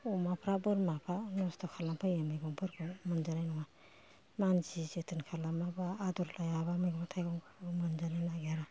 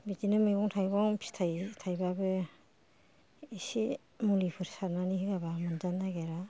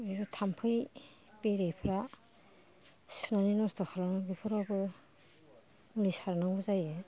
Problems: background sounds at intervals, low volume